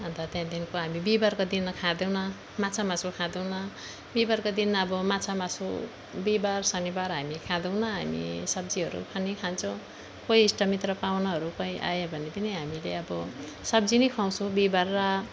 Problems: background sounds at intervals